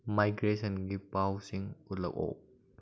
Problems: low volume